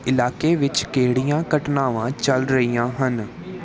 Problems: background conversations at intervals